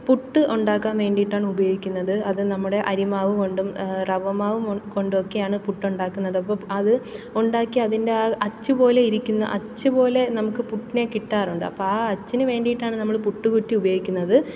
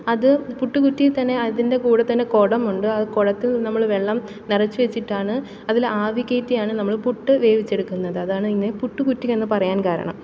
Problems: background sounds at intervals